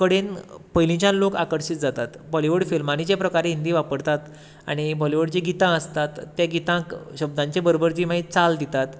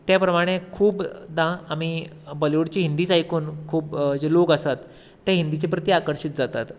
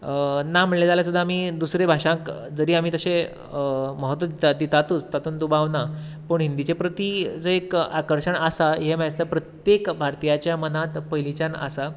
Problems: constant background noise